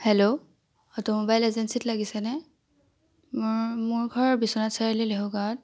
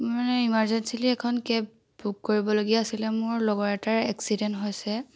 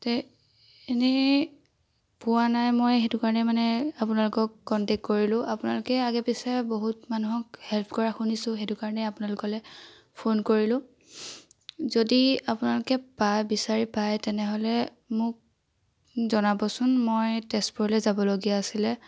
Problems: none marked